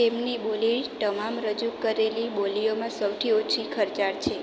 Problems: none marked